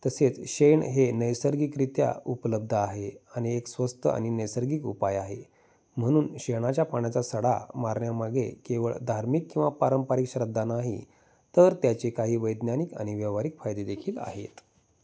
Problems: background sounds at intervals